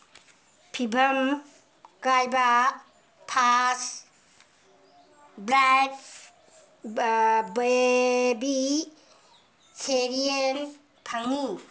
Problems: background sounds at intervals